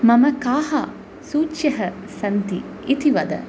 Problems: constant background noise